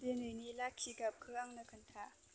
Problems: constant background noise